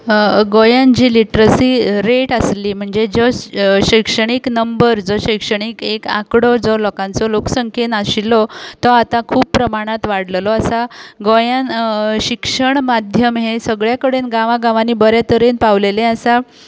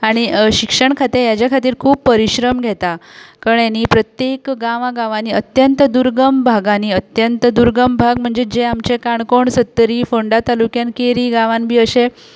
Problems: constant background noise